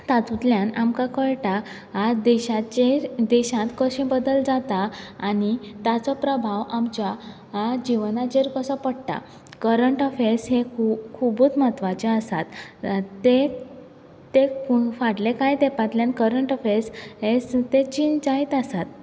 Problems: background sounds at intervals